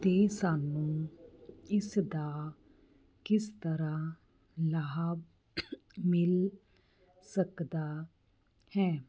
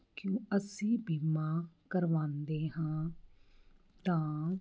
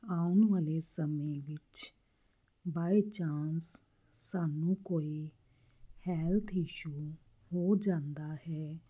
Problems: constant background noise